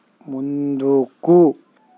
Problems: constant background noise